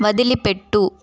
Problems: constant background noise, background conversations at intervals